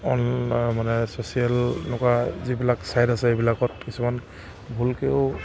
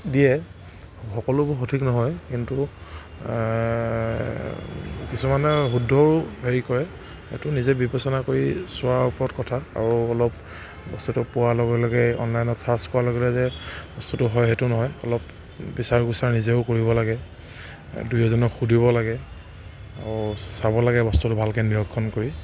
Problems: constant background noise